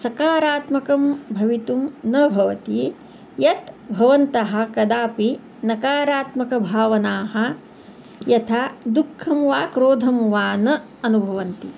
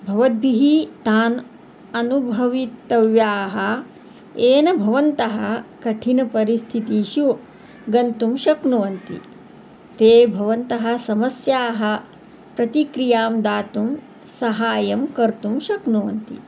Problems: background sounds at intervals